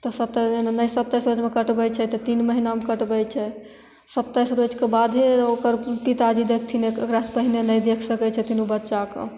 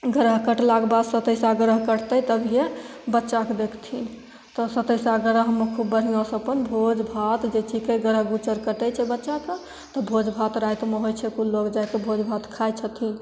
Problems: none marked